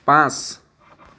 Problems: none marked